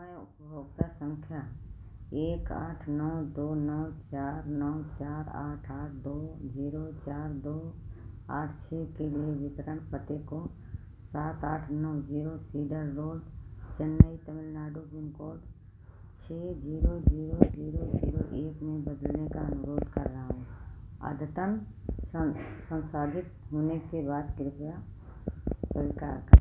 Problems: constant background noise